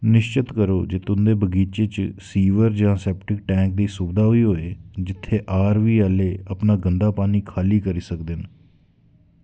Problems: echo